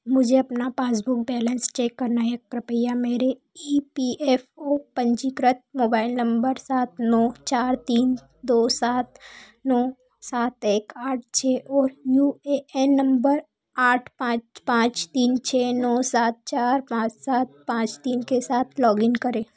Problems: none marked